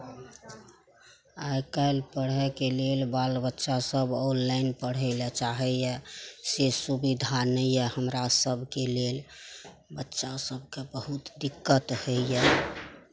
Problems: none marked